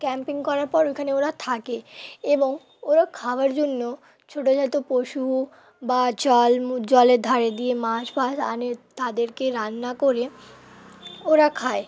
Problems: constant background noise, continuous background conversations